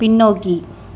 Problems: none marked